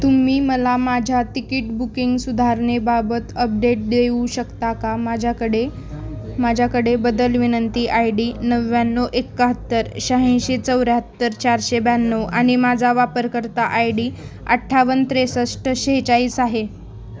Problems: background sounds at intervals